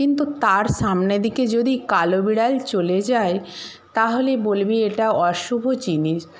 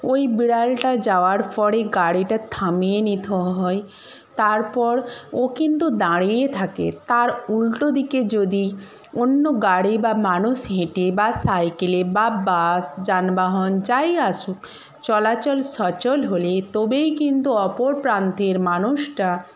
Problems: background sounds at intervals